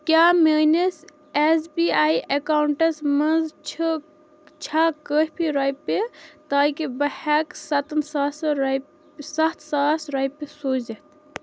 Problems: background sounds at intervals